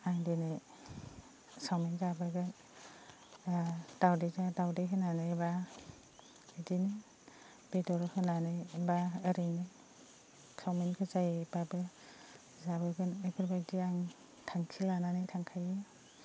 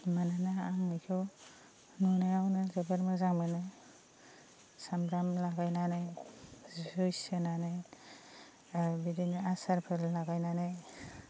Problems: constant background noise